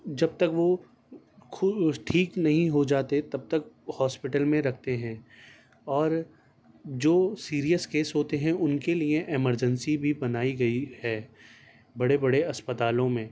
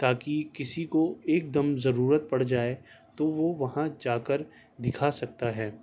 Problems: constant background noise